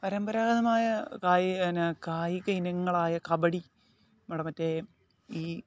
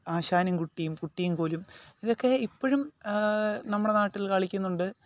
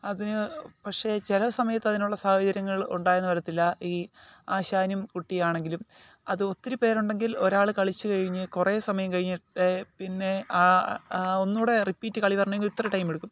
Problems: none marked